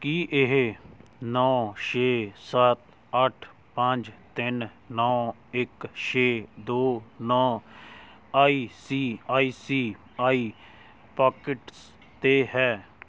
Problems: none marked